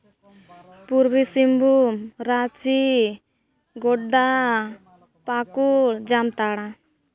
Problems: background conversations at intervals